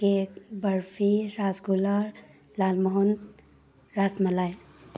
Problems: none marked